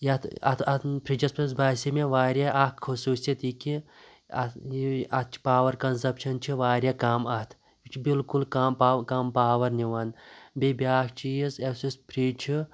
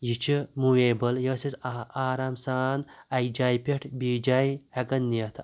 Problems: background sounds at intervals